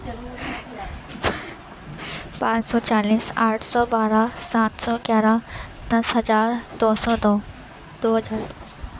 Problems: constant background noise